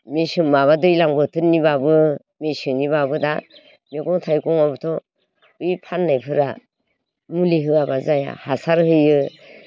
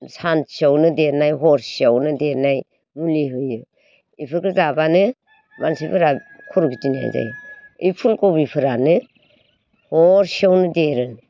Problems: background conversations at intervals